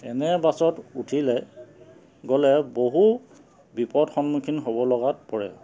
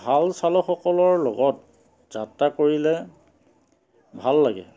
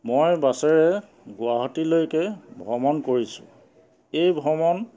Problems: constant background noise